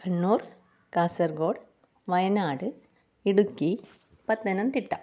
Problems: low volume